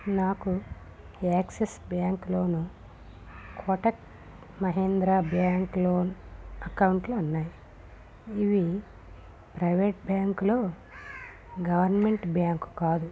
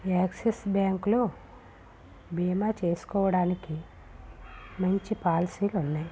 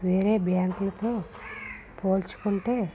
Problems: none marked